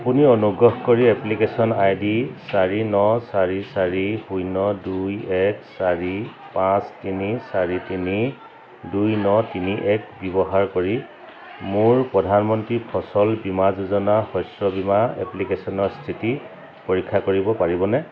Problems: none marked